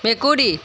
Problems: constant background noise